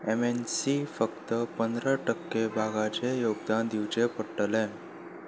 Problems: background sounds at intervals